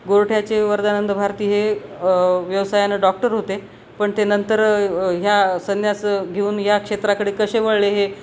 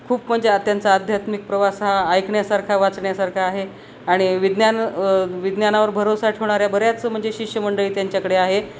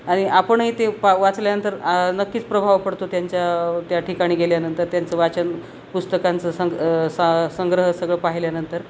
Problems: constant background noise